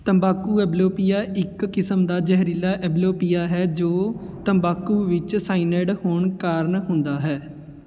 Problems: none marked